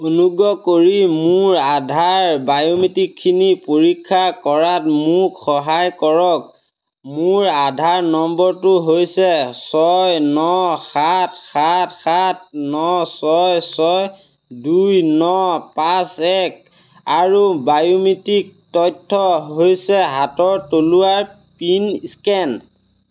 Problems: none marked